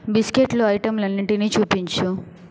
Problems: background sounds at intervals